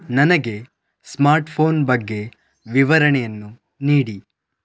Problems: none marked